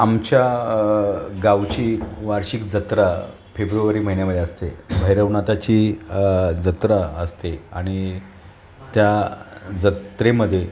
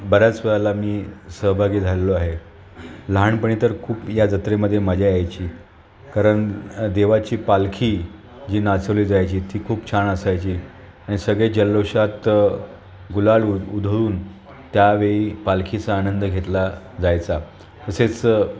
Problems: none marked